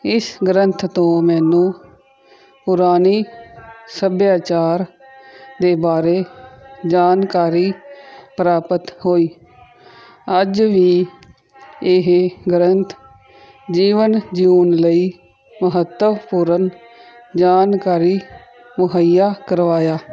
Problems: continuous background conversations